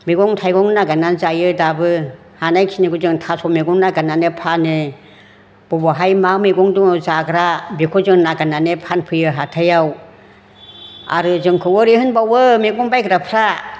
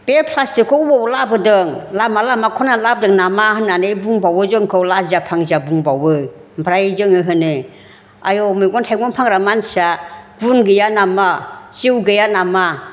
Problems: constant background noise